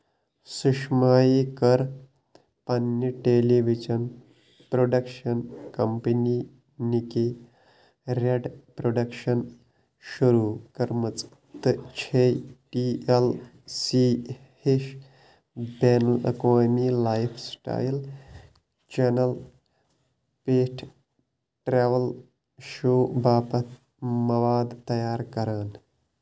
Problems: constant background noise